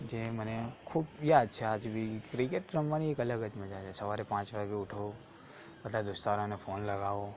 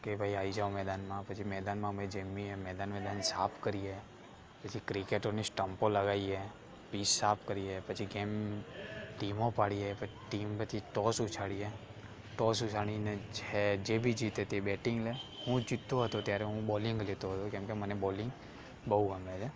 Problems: constant background noise, background conversations at intervals